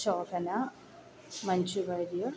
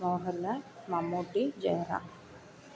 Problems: low volume